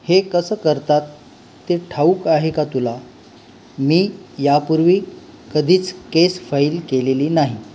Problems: none marked